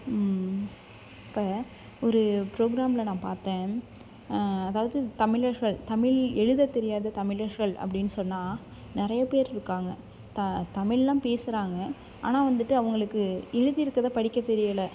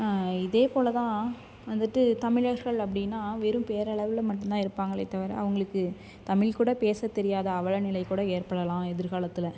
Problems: background sounds at intervals